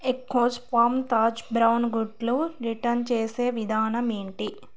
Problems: none marked